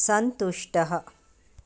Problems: none marked